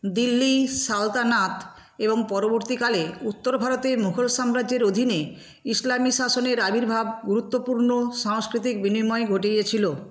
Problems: constant background noise